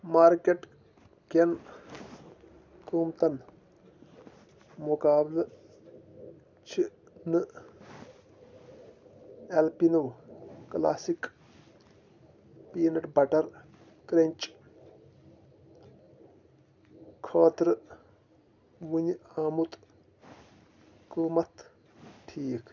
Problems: constant background noise